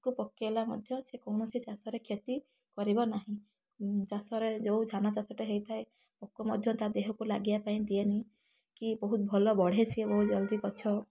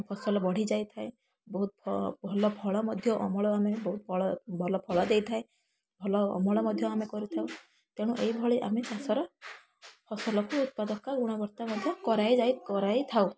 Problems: background sounds at intervals, background conversations at intervals